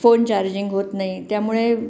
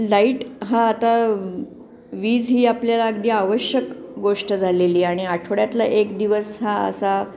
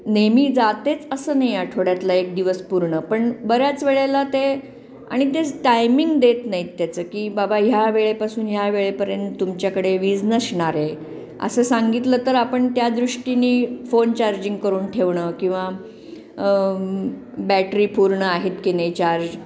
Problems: constant background noise